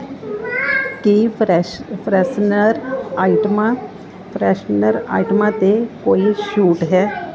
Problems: continuous background conversations